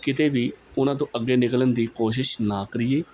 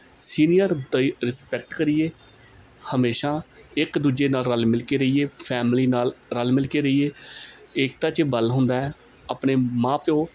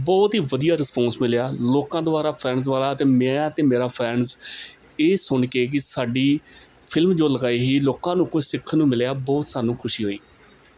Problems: background sounds at intervals, background conversations at intervals